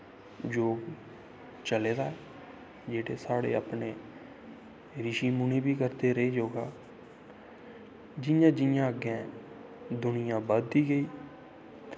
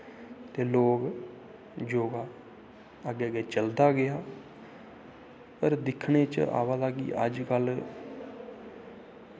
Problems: constant background noise, echo